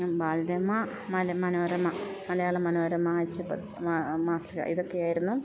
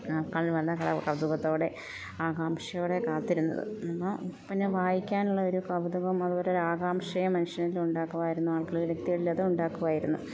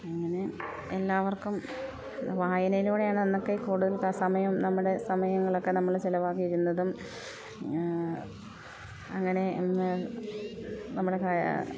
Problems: constant background noise